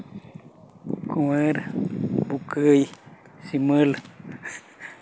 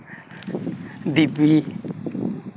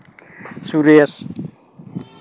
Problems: constant background noise